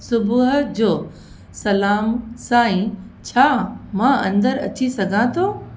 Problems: constant background noise, echo